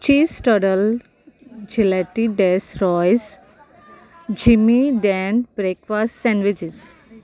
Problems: low volume